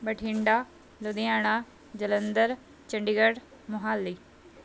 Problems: none marked